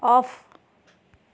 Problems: constant background noise